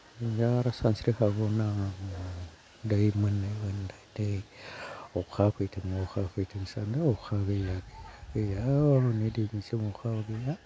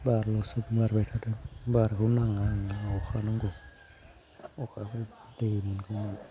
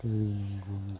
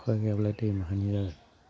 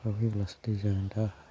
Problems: none marked